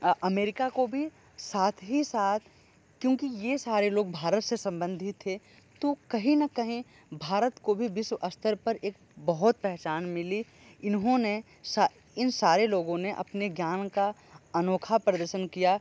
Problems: none marked